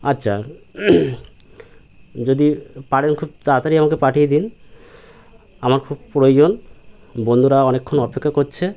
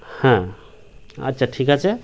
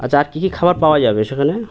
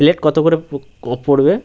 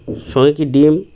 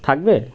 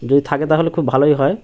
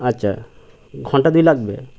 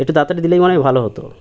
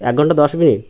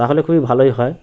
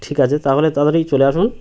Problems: constant background noise